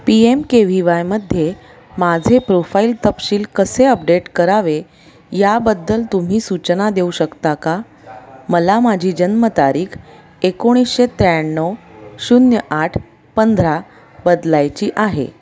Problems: constant background noise, continuous background conversations